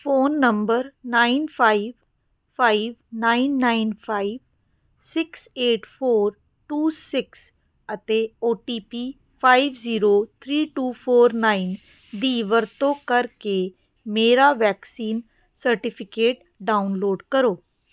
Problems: none marked